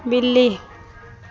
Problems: none marked